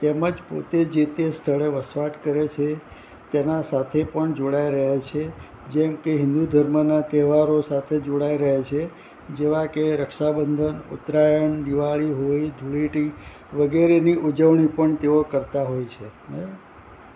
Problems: constant background noise